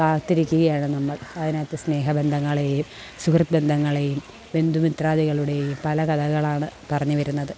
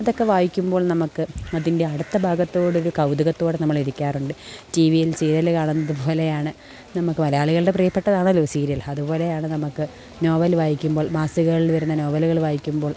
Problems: background sounds at intervals